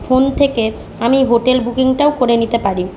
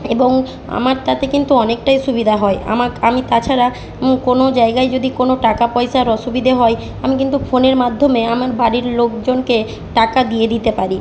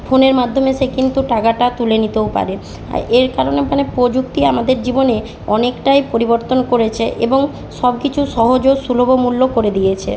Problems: constant background noise